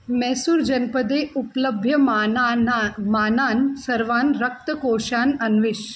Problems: constant background noise